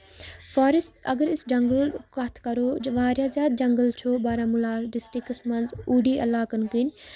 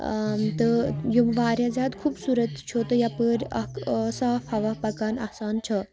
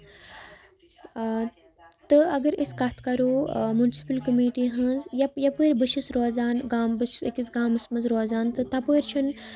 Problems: constant background noise